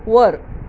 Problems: none marked